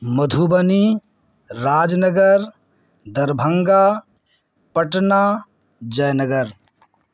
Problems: constant background noise